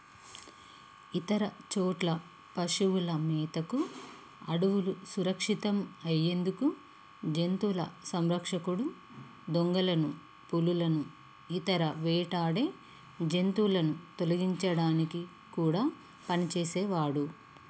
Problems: constant background noise